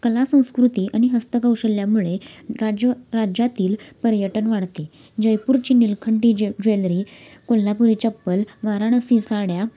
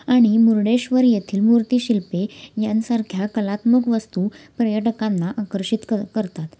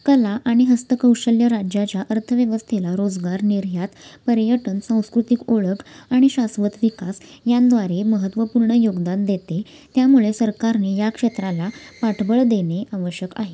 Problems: constant background noise, background conversations at intervals